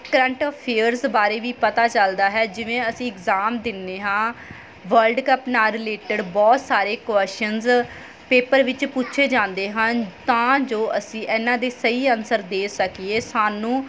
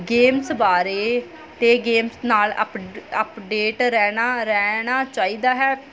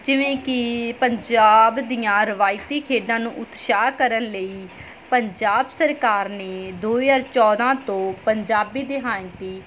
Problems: background sounds at intervals